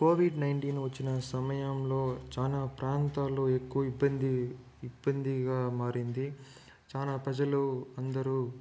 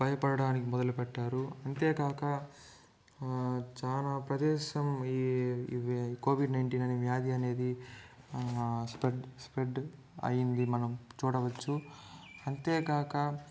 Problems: background sounds at intervals